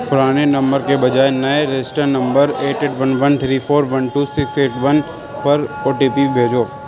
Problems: constant background noise